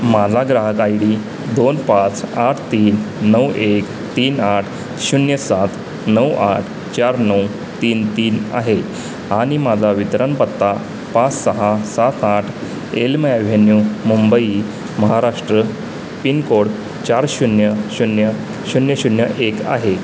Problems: constant background noise